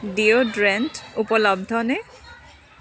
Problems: continuous background conversations